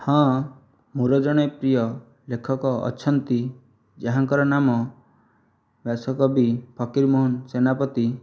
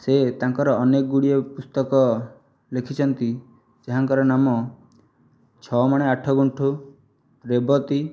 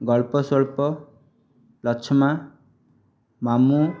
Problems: background sounds at intervals